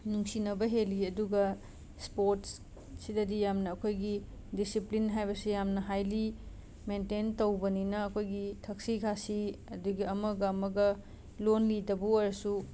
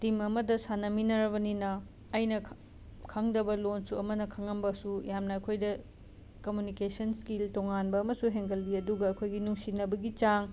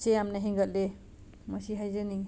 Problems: constant background noise